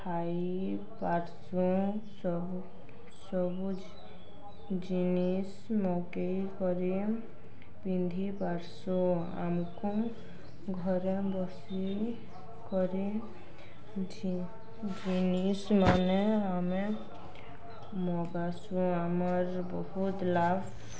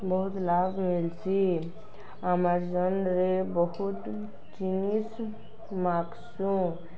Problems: none marked